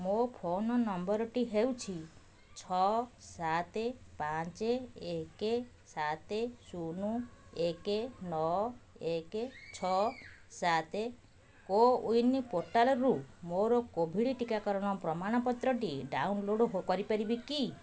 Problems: constant background noise